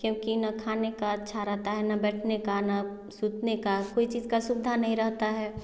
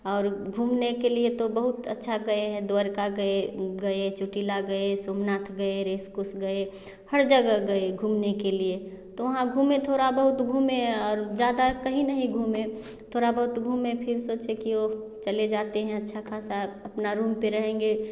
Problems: none marked